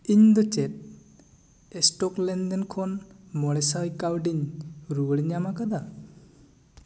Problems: echo